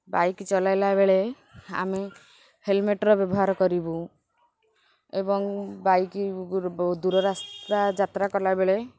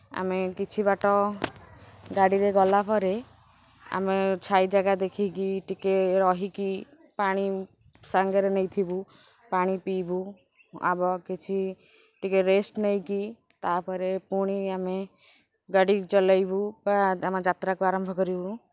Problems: constant background noise, background conversations at intervals